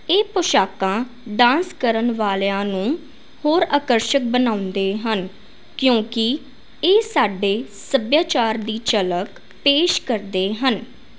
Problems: constant background noise